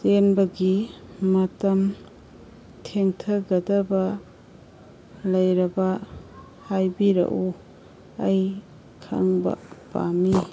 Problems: background sounds at intervals